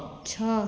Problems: echo